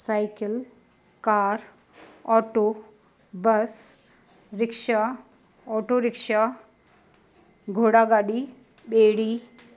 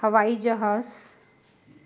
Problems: constant background noise